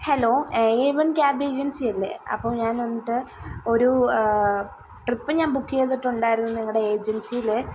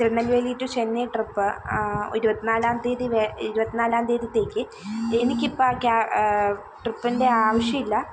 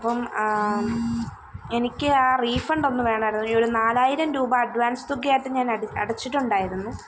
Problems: background sounds at intervals